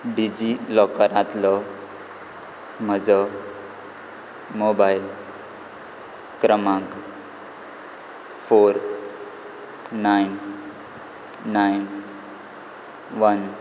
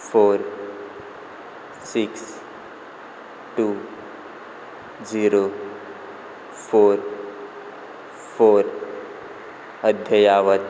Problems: constant background noise